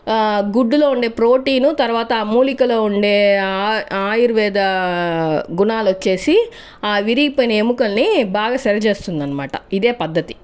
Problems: none marked